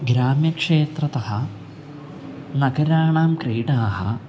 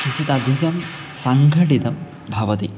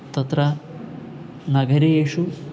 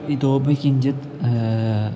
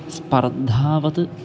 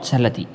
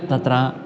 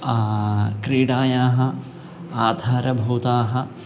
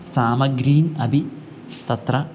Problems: background sounds at intervals